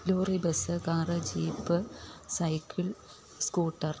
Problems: none marked